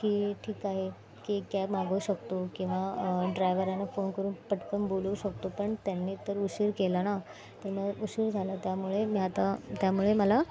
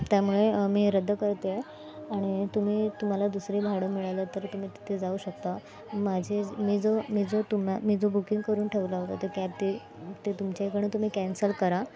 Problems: constant background noise, background conversations at intervals